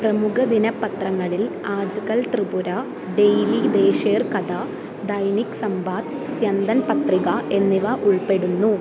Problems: constant background noise